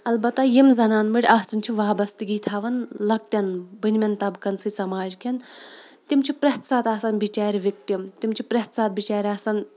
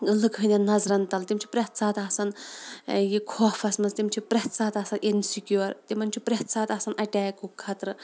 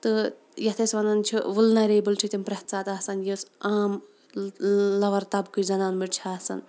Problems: background sounds at intervals